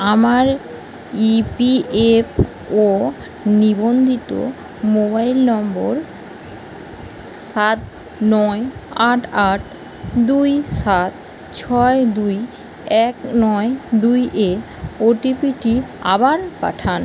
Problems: constant background noise